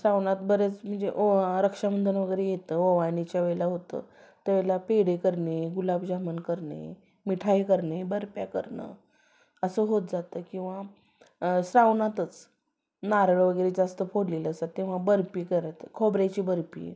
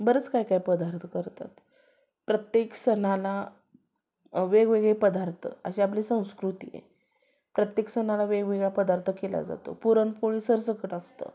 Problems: background sounds at intervals